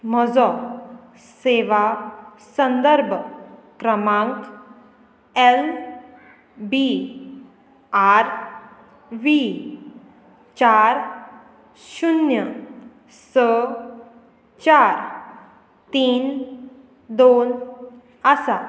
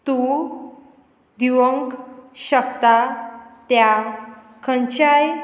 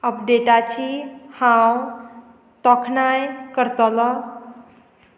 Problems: none marked